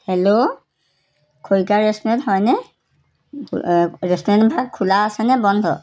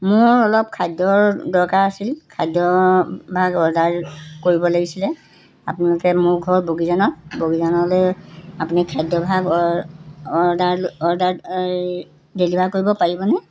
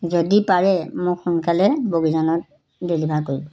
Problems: none marked